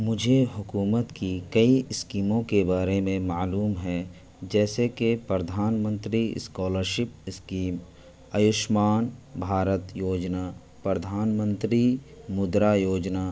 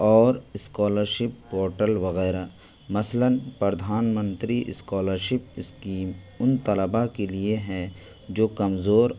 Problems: constant background noise